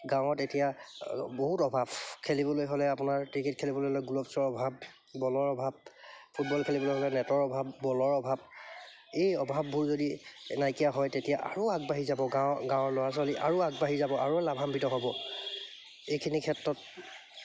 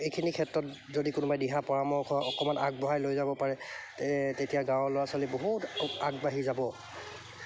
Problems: none marked